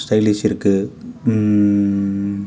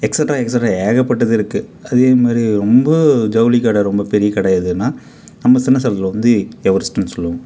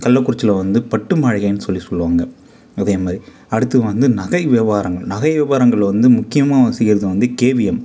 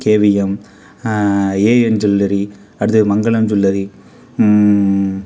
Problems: none marked